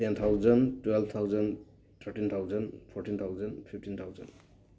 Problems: none marked